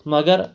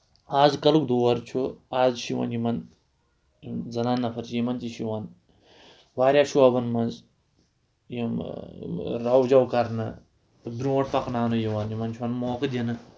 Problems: none marked